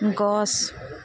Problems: none marked